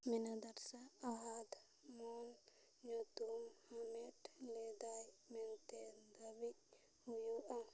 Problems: low volume